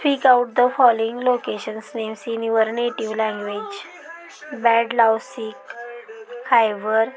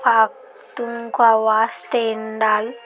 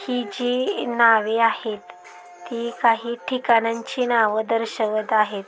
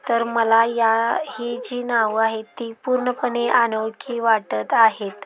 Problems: constant background noise, continuous background conversations